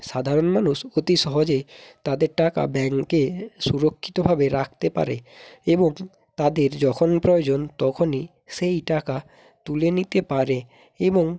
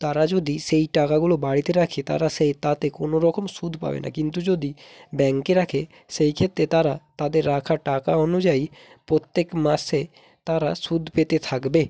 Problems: background sounds at intervals